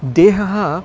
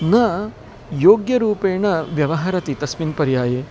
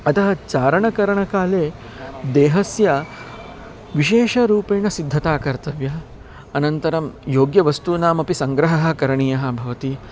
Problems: constant background noise, background conversations at intervals